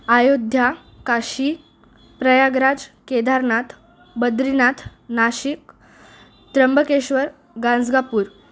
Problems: constant background noise, background conversations at intervals